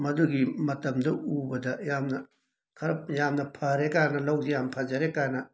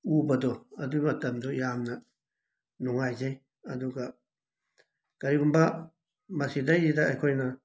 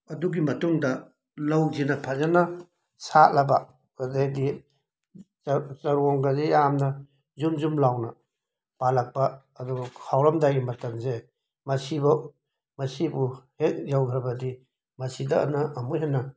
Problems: background sounds at intervals